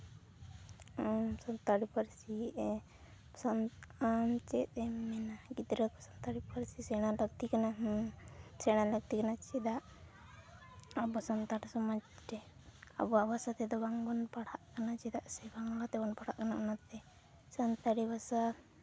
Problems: background sounds at intervals, background conversations at intervals